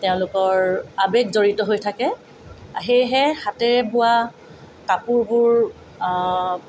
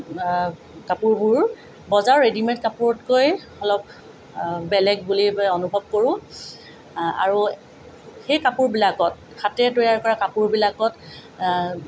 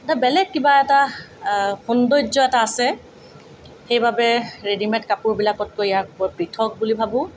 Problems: none marked